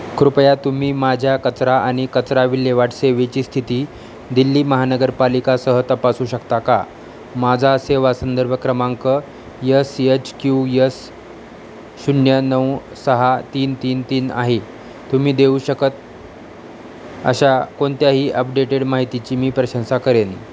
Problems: none marked